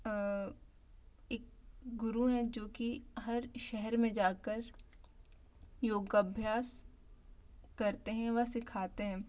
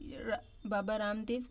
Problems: low volume